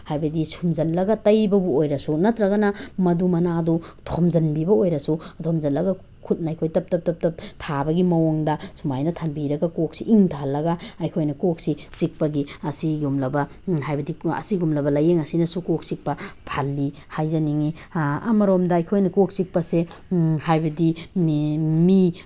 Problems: background sounds at intervals